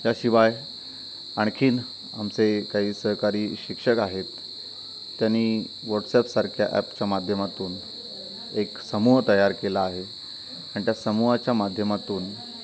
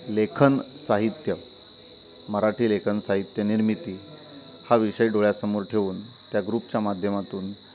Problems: constant background noise, continuous background conversations